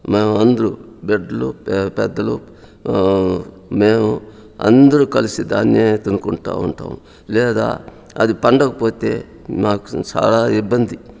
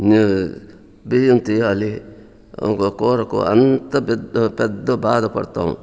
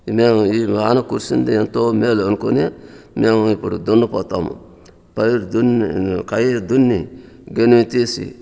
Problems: constant background noise